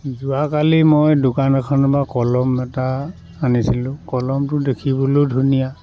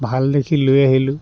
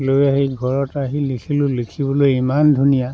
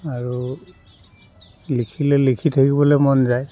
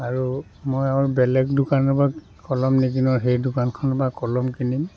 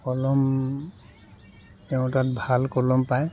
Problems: continuous background conversations